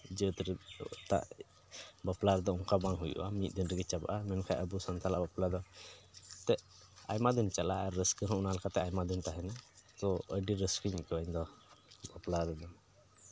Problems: background sounds at intervals